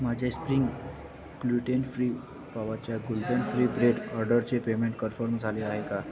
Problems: constant background noise, background conversations at intervals